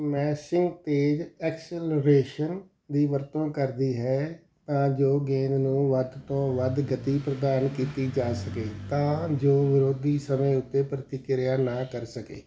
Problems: background sounds at intervals